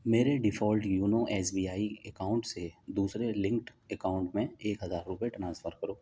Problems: none marked